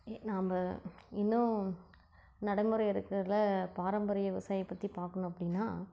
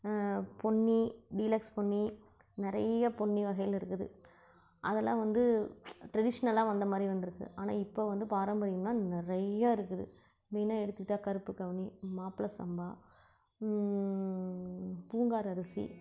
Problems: low volume